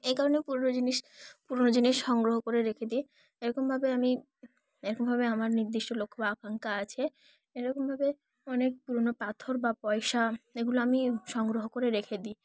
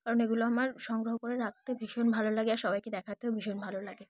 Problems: none marked